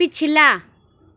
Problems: none marked